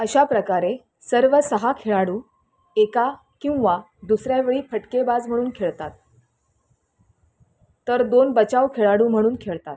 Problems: constant background noise